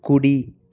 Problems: none marked